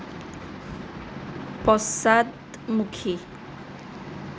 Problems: constant background noise